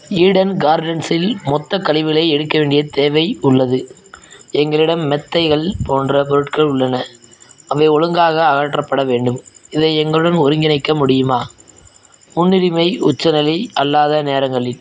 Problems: none marked